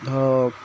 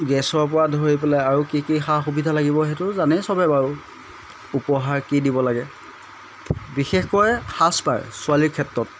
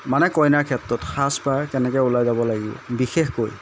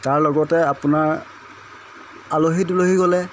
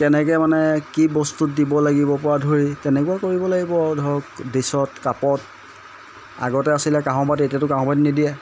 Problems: constant background noise